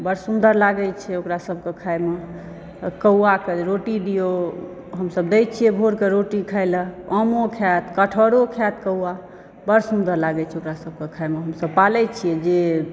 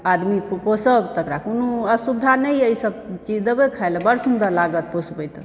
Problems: background sounds at intervals